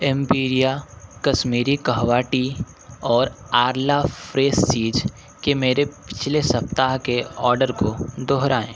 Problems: none marked